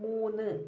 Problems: low volume